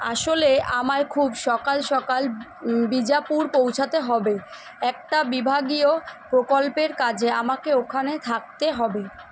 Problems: constant background noise